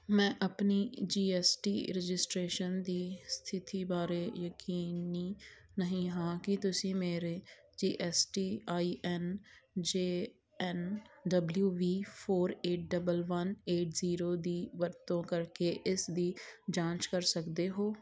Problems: background sounds at intervals